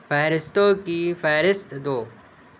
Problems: none marked